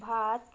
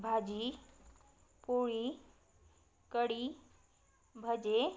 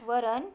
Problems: none marked